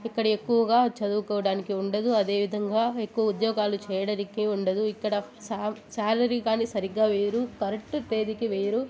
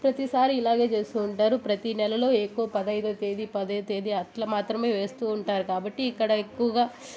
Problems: constant background noise, continuous background conversations